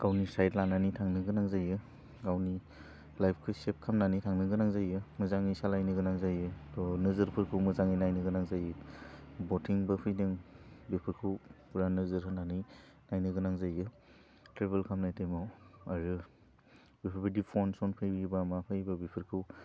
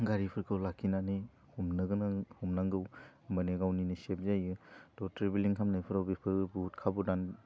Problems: none marked